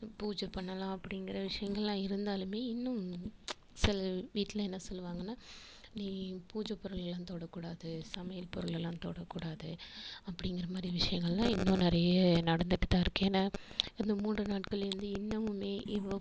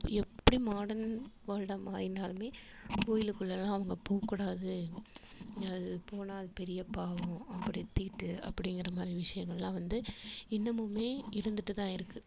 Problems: constant background noise